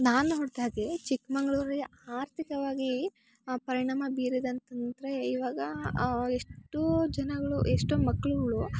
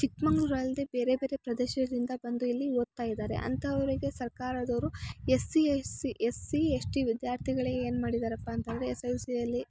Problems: none marked